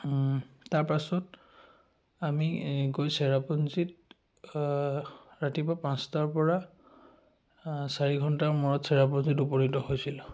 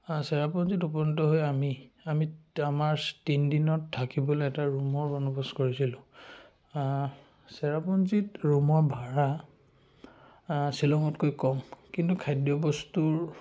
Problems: background sounds at intervals